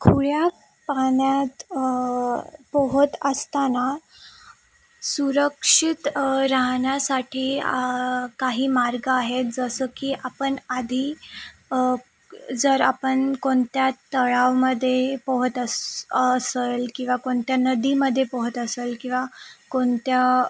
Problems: constant background noise